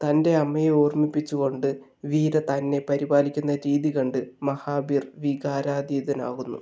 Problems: none marked